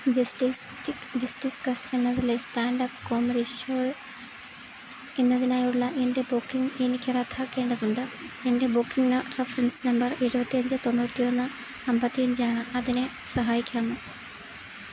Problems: constant background noise